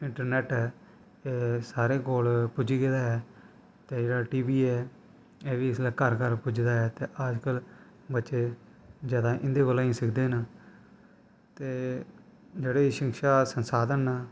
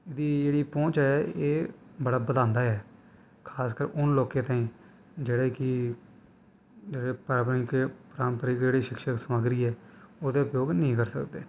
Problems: constant background noise